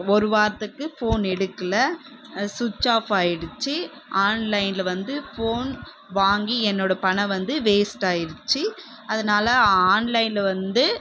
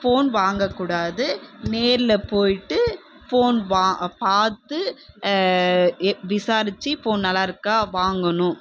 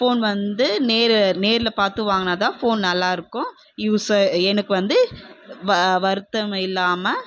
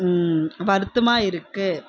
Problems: background sounds at intervals